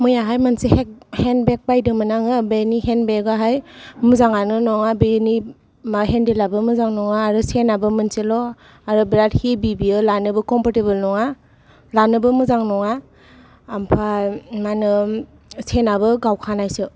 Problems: none marked